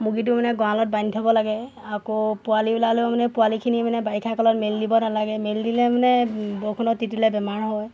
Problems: constant background noise